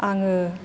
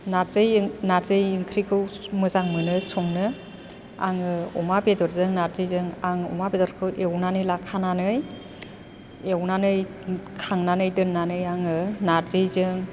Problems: constant background noise